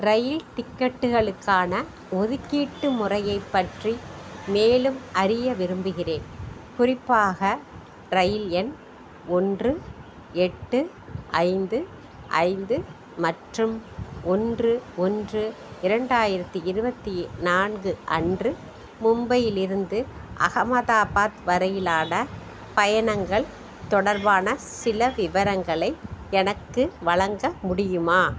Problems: none marked